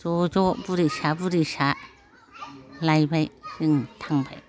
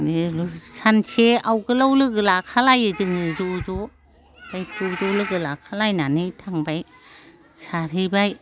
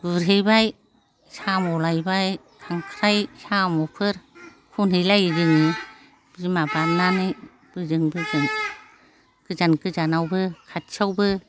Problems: none marked